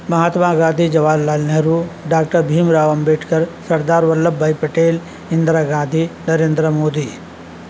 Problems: constant background noise